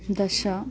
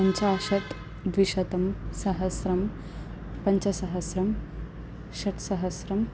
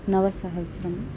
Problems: none marked